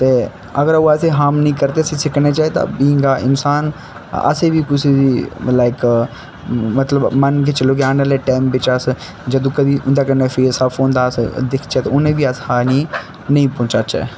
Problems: constant background noise